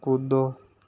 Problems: background sounds at intervals